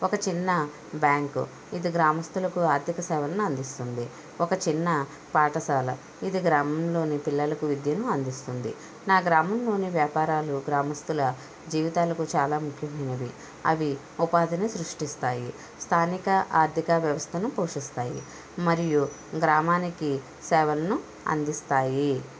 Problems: none marked